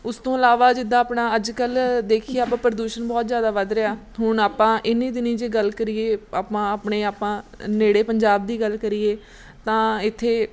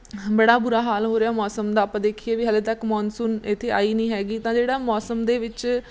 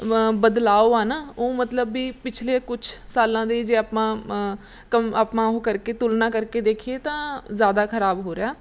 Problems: background sounds at intervals